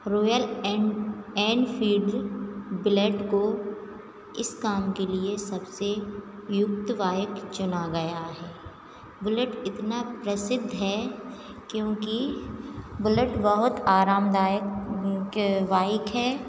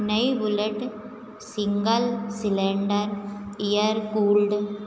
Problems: none marked